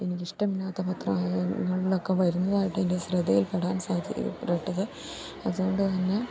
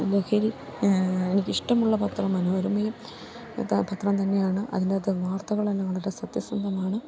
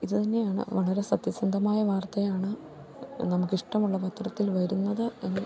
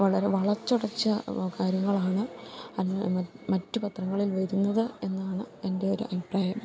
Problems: none marked